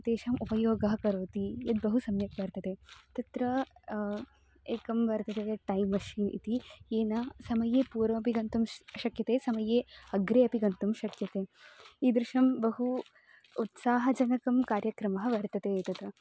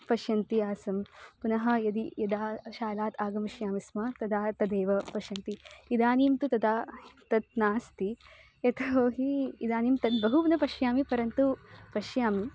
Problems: constant background noise, continuous background conversations